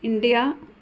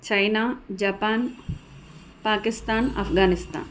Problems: constant background noise